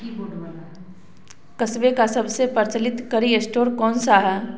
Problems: background sounds at intervals